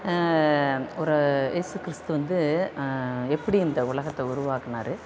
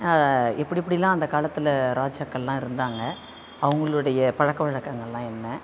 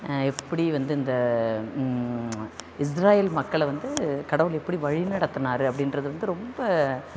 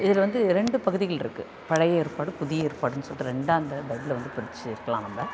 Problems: constant background noise, continuous background conversations